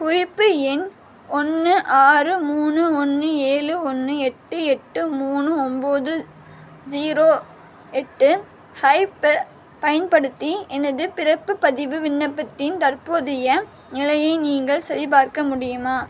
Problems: constant background noise